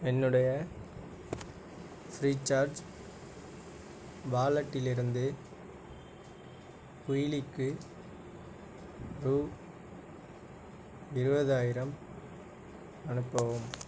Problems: none marked